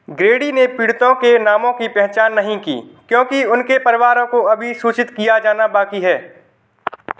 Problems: background sounds at intervals